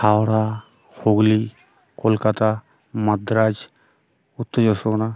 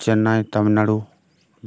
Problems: background sounds at intervals, background conversations at intervals